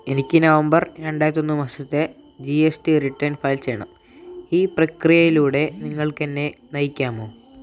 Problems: constant background noise, low volume